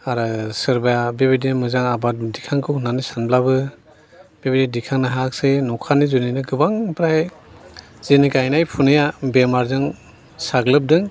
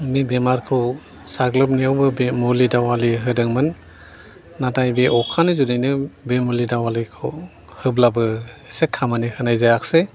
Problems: none marked